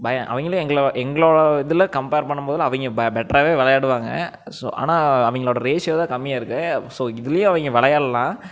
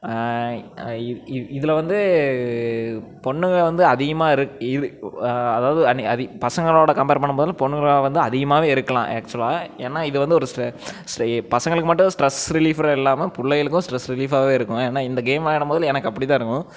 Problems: none marked